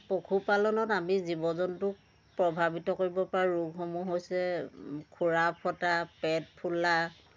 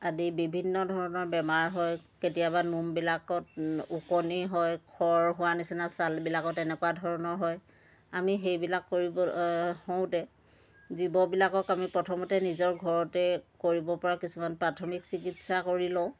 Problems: constant background noise